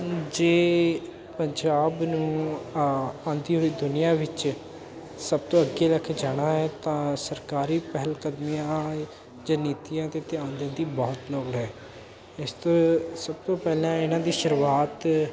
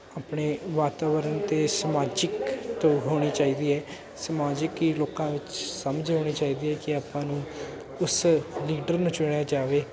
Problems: constant background noise